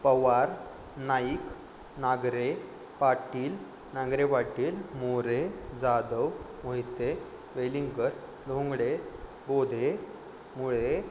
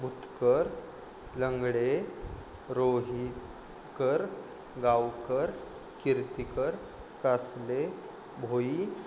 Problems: constant background noise